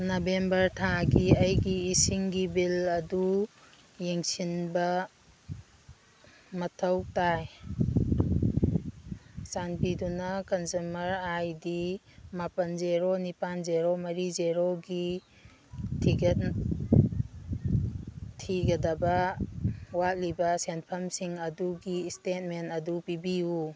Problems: background sounds at intervals